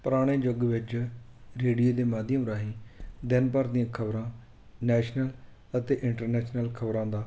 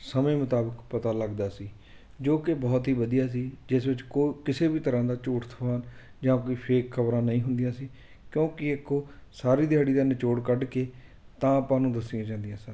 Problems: constant background noise